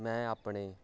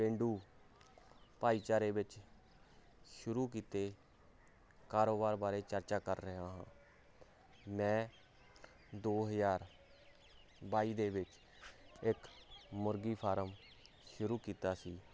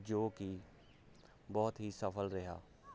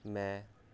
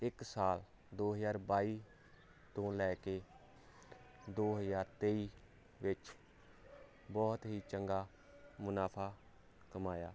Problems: none marked